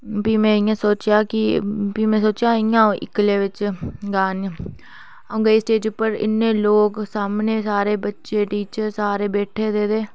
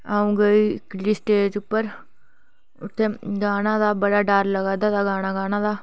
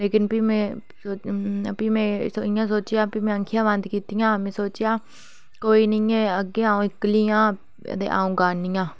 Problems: none marked